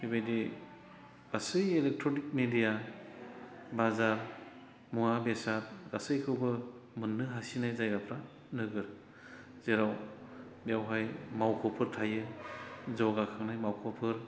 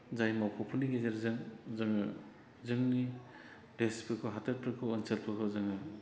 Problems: none marked